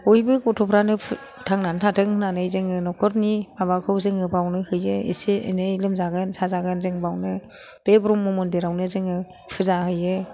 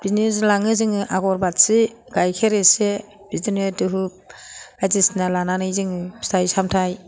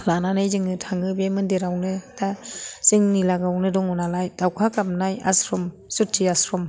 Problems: background sounds at intervals, background conversations at intervals